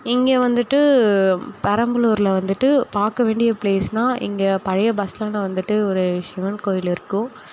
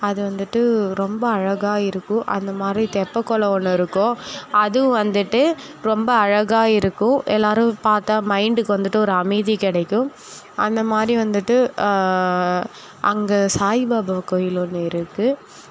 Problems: none marked